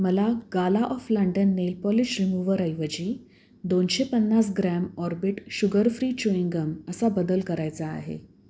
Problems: none marked